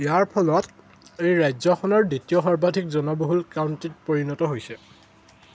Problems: constant background noise